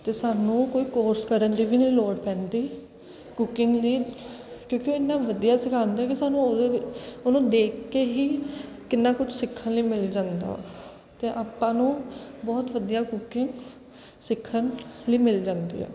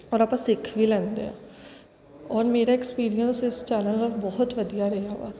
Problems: none marked